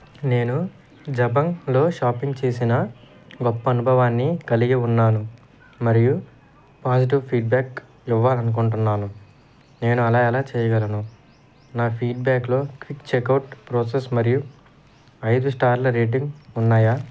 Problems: constant background noise